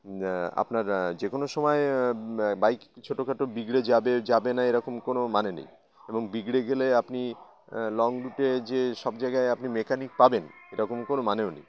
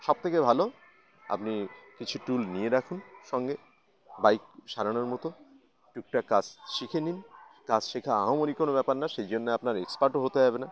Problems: background sounds at intervals, background conversations at intervals